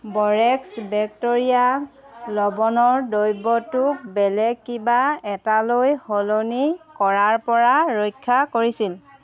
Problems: background conversations at intervals